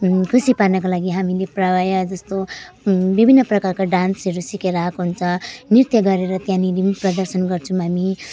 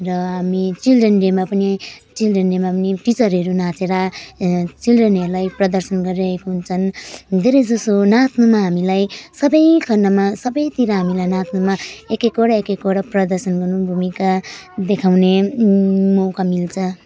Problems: background sounds at intervals